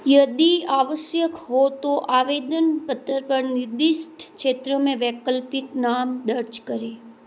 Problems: constant background noise